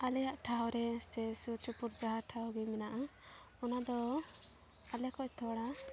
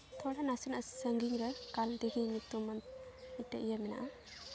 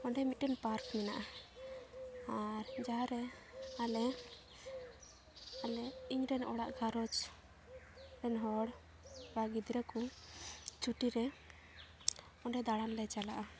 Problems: background sounds at intervals, background conversations at intervals